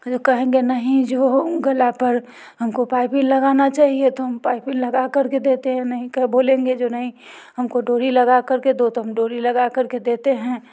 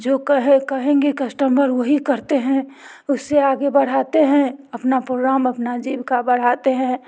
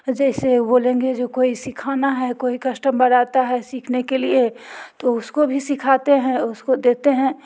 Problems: none marked